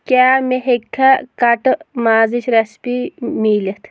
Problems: background sounds at intervals